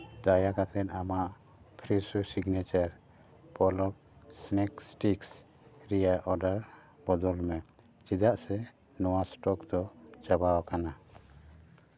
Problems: background sounds at intervals